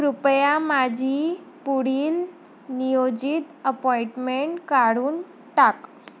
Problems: constant background noise